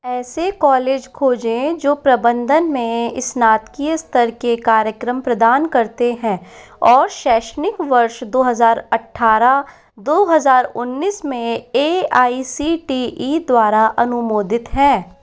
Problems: constant background noise